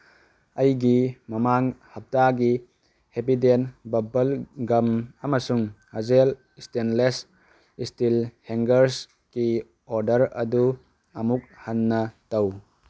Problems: background sounds at intervals